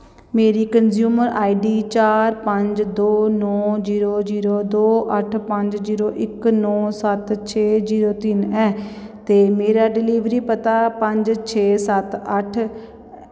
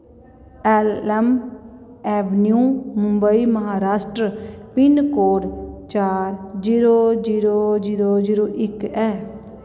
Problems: echo